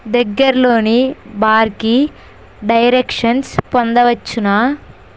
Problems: constant background noise